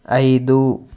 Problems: background sounds at intervals